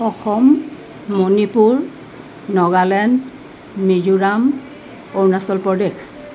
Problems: none marked